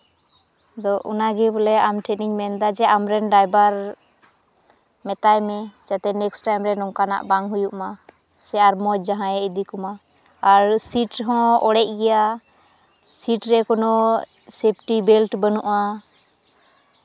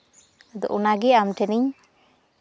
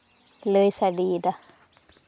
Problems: none marked